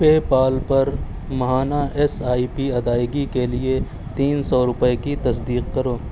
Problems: none marked